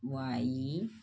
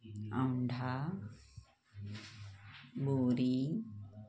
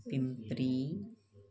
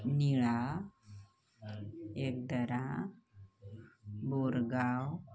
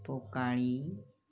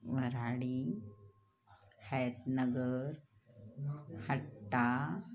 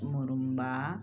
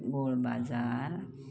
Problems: constant background noise, continuous background conversations